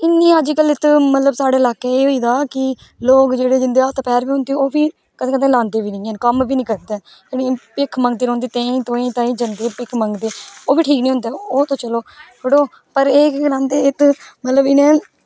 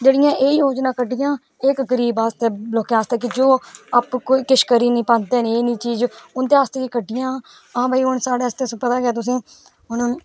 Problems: none marked